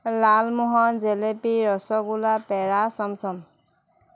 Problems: constant background noise